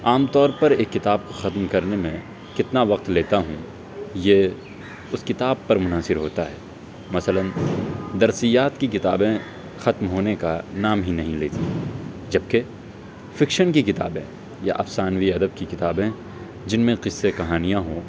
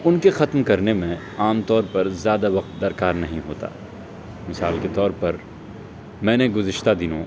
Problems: constant background noise